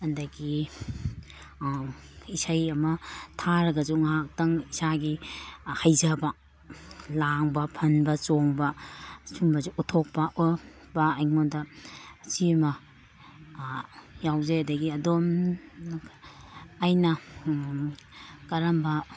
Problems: none marked